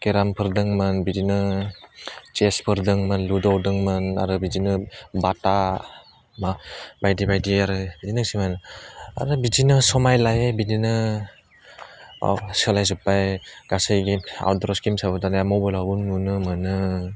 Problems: low volume